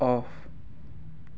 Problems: none marked